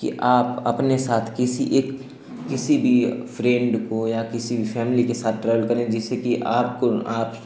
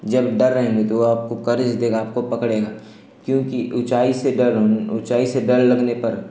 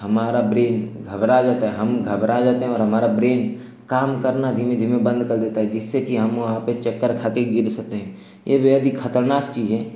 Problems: none marked